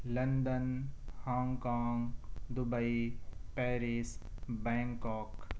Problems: none marked